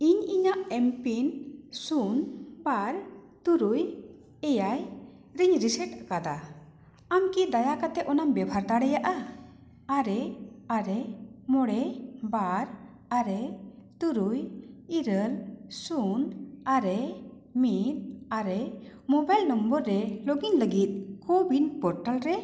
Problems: echo